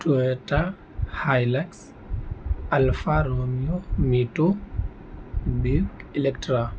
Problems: constant background noise